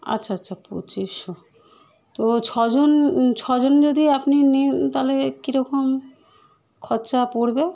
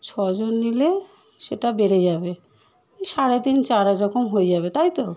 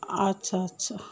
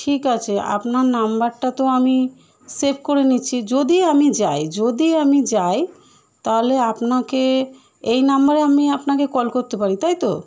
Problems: none marked